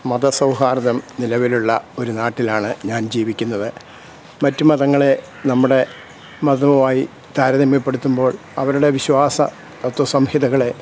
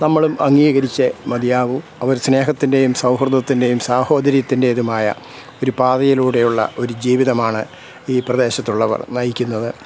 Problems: none marked